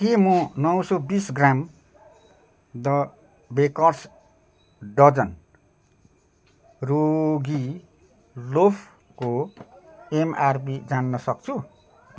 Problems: continuous background conversations